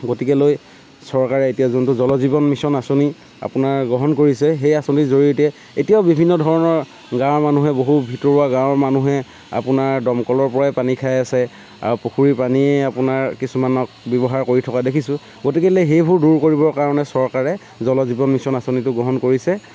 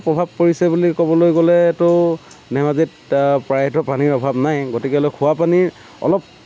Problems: constant background noise